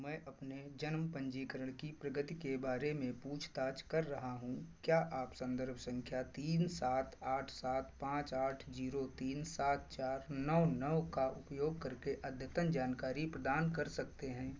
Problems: constant background noise